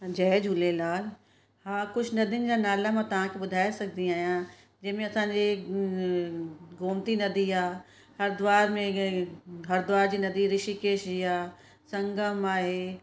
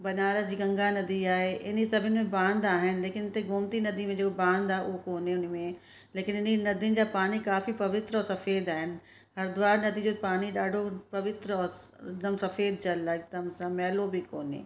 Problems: constant background noise